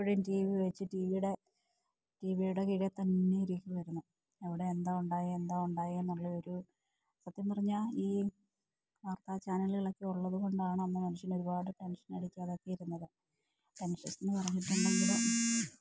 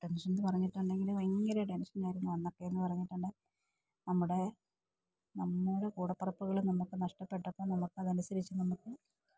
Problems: low volume